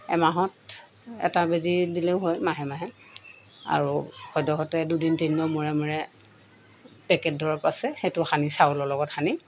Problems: constant background noise